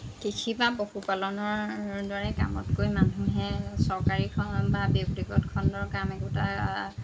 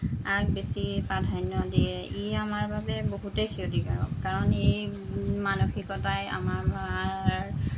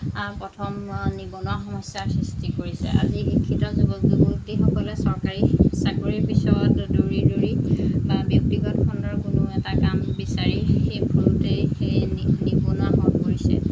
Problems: constant background noise